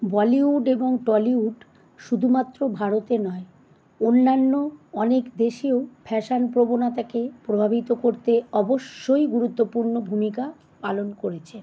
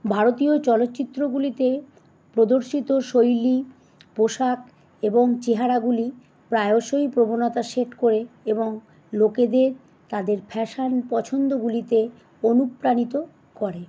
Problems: none marked